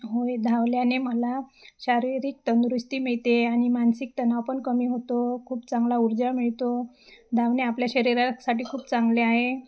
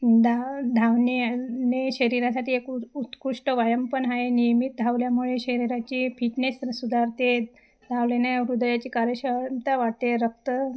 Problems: constant background noise, background conversations at intervals, echo